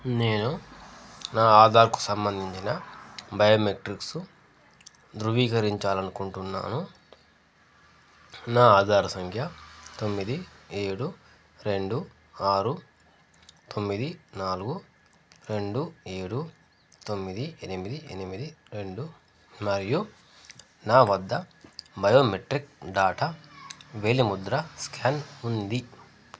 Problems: constant background noise